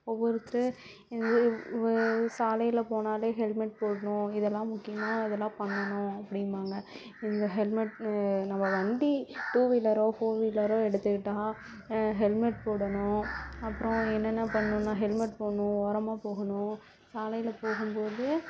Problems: constant background noise